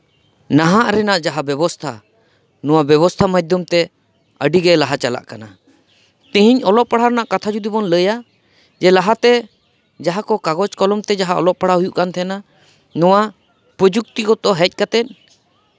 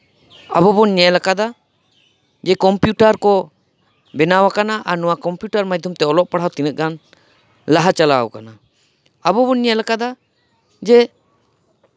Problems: none marked